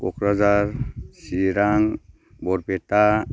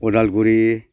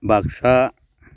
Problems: none marked